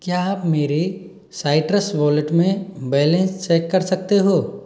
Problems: background sounds at intervals